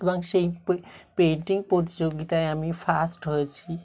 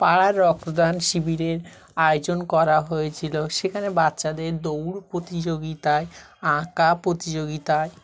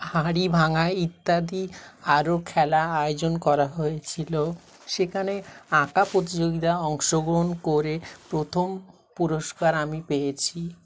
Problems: continuous background conversations